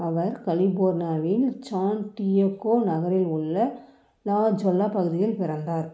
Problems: none marked